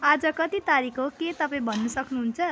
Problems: constant background noise